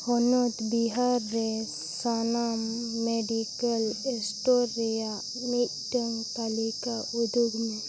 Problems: constant background noise, background conversations at intervals